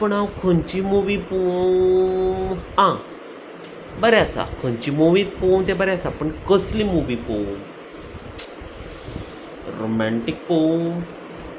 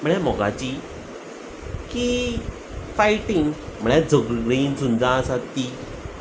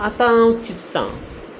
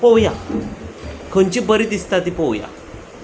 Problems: none marked